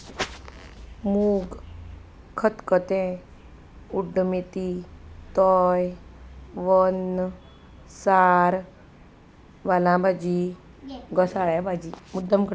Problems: constant background noise, background conversations at intervals